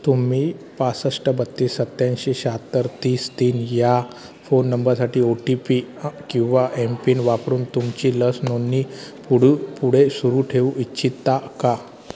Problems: constant background noise, continuous background conversations